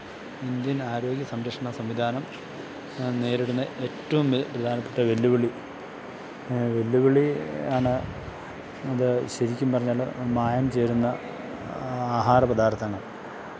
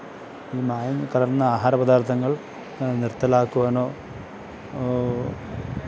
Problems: background sounds at intervals